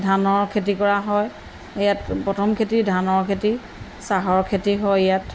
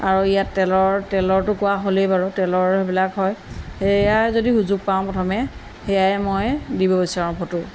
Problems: none marked